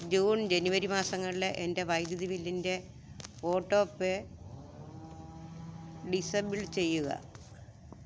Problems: low volume